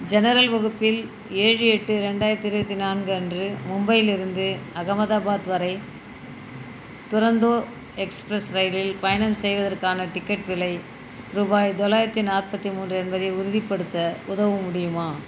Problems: constant background noise